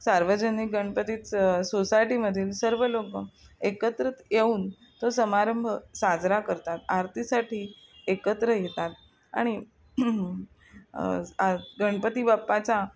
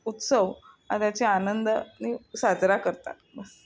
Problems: none marked